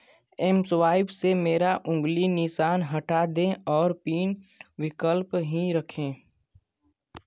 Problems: none marked